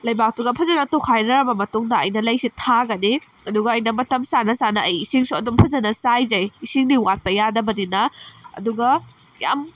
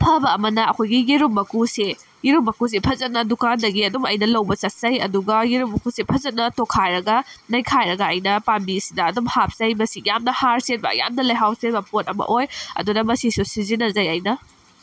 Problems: background sounds at intervals